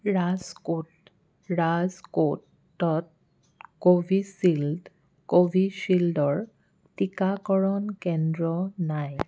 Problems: background sounds at intervals